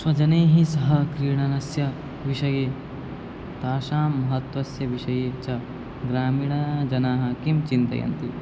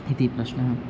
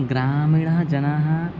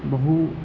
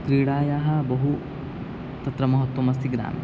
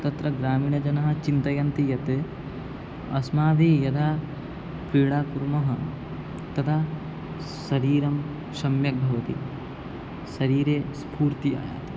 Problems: constant background noise